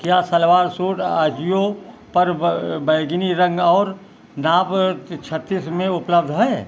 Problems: background sounds at intervals